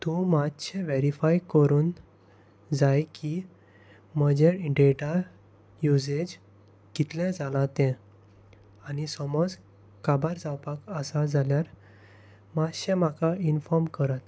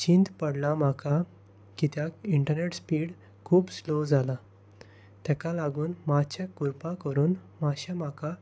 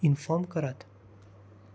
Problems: constant background noise